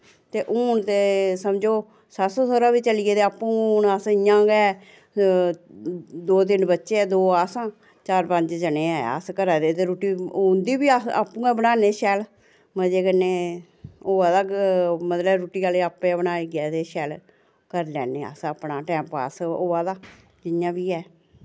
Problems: none marked